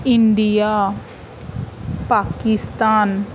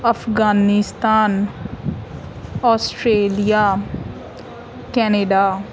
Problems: none marked